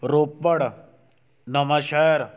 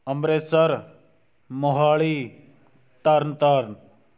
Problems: none marked